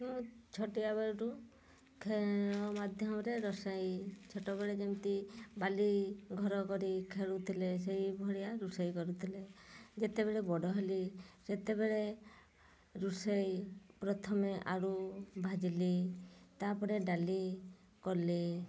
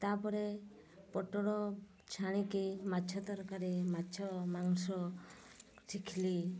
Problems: low volume